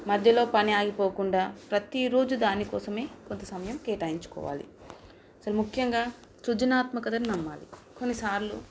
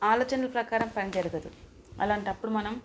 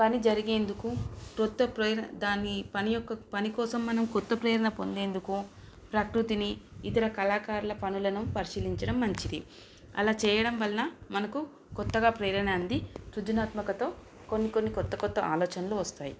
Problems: constant background noise